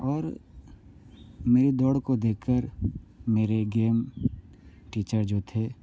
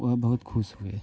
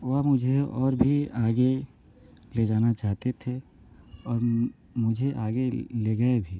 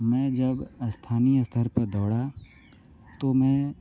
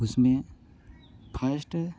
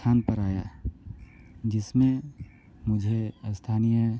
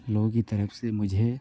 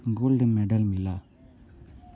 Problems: none marked